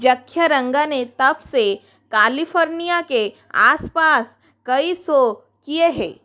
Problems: none marked